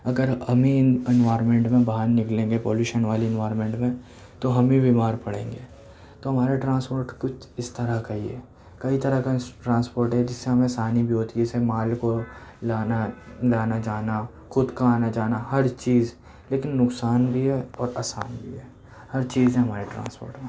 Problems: background sounds at intervals